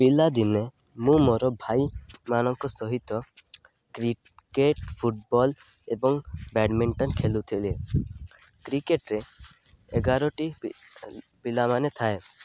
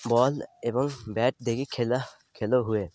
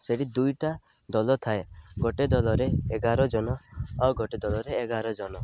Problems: none marked